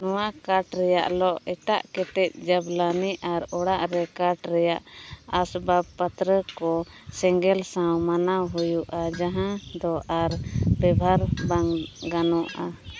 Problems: background sounds at intervals, background conversations at intervals